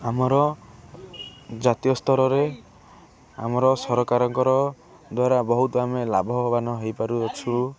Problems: constant background noise, continuous background conversations